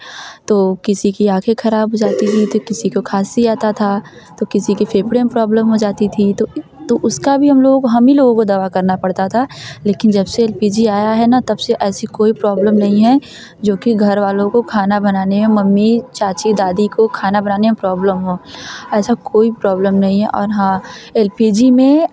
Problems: constant background noise